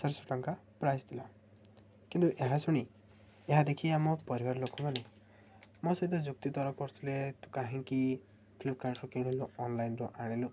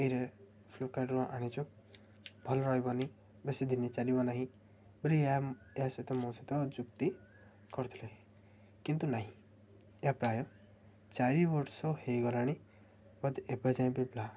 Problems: low volume